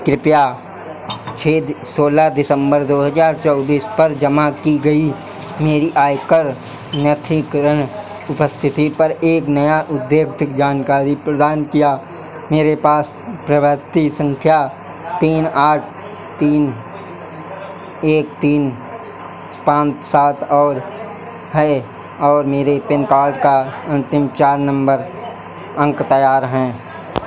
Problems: none marked